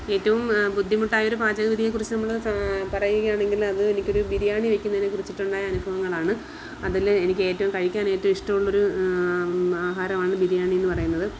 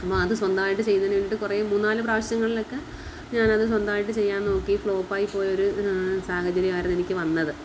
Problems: constant background noise